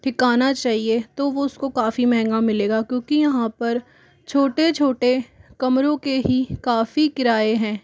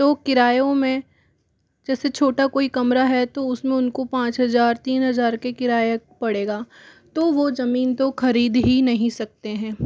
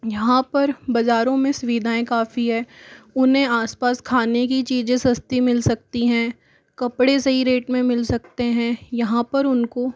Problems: background sounds at intervals